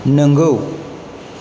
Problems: constant background noise